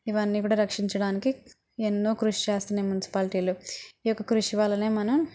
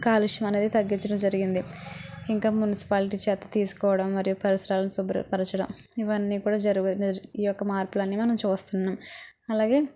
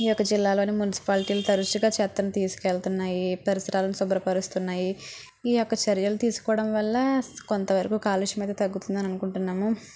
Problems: none marked